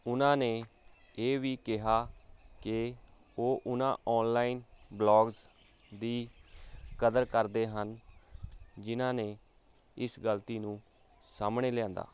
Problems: constant background noise